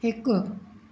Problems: none marked